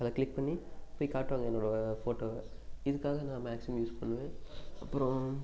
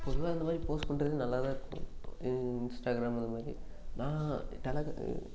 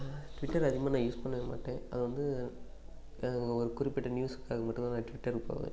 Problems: constant background noise